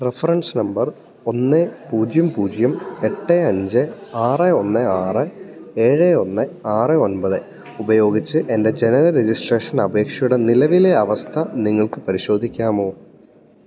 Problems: none marked